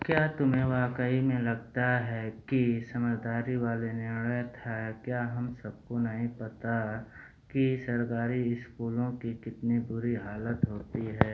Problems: none marked